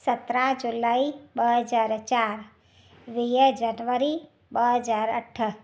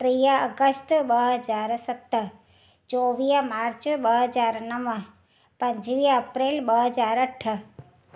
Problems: none marked